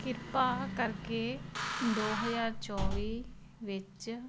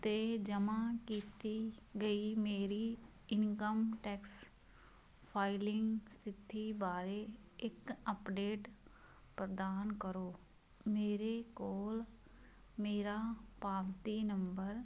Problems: none marked